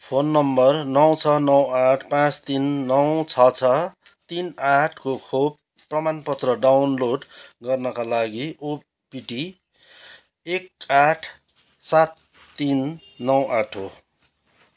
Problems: background sounds at intervals